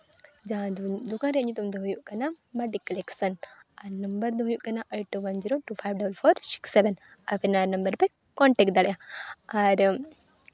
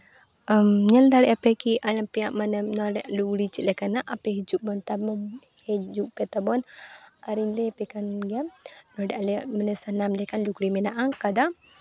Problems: background sounds at intervals